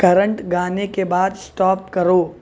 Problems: none marked